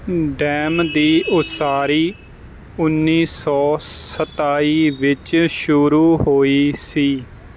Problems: none marked